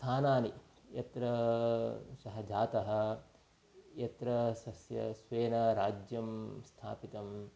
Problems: constant background noise